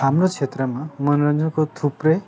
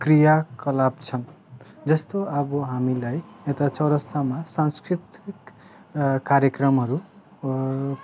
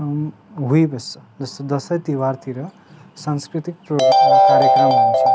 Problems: background sounds at intervals